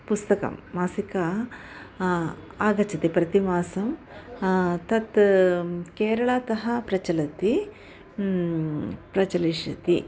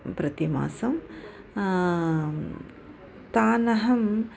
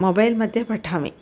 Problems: none marked